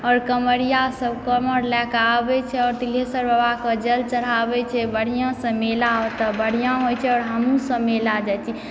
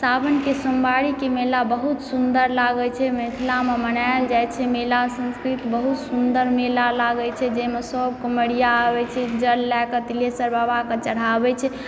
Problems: background sounds at intervals